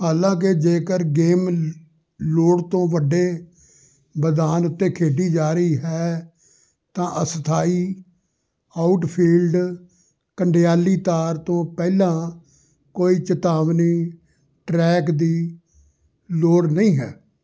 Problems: background conversations at intervals